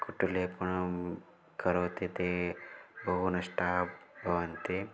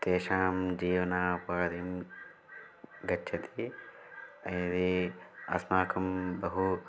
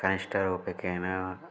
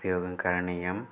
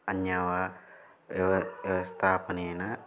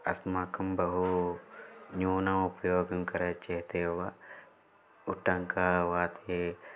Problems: low volume